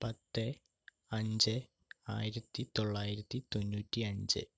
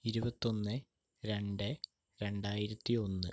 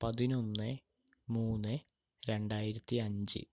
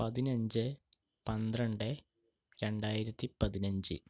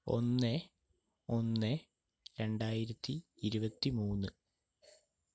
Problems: none marked